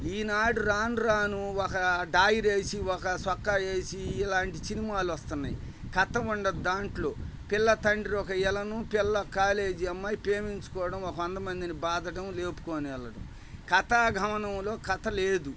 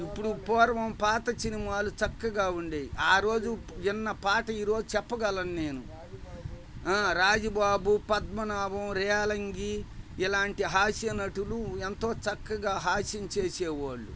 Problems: none marked